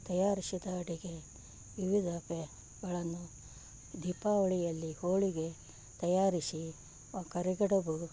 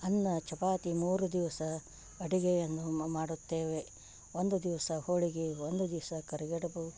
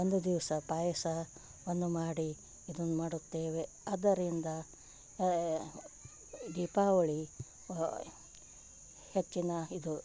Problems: background sounds at intervals